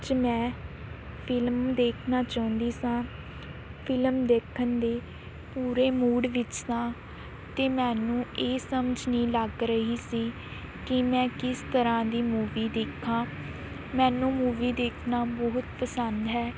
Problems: none marked